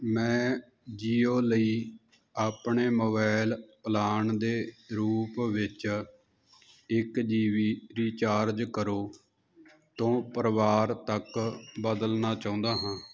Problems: none marked